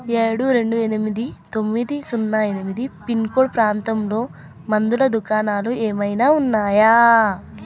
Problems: none marked